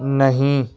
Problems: constant background noise